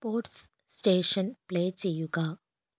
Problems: low volume